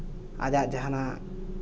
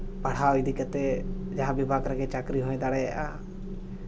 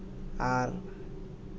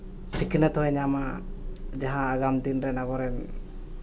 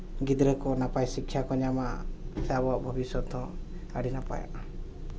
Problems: none marked